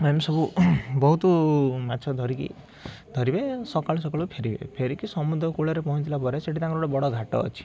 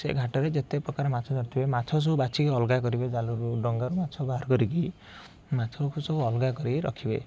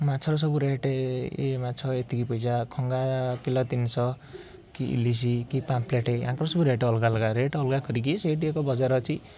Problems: none marked